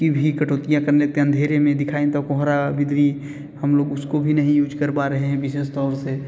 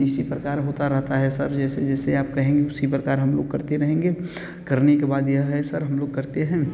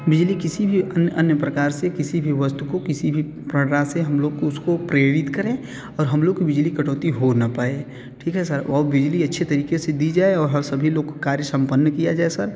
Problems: background sounds at intervals